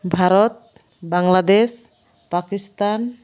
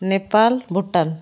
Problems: none marked